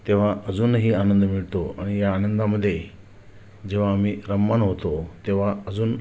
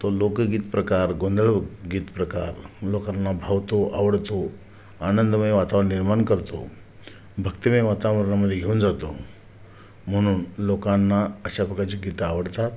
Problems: none marked